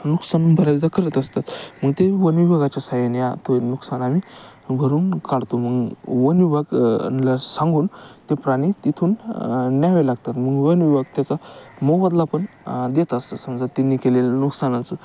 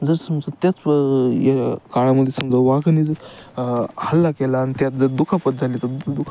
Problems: constant background noise, background conversations at intervals